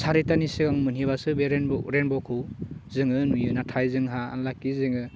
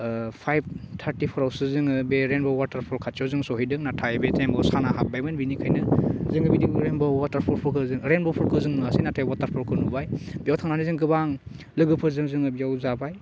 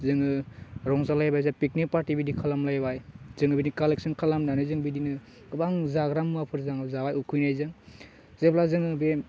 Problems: low volume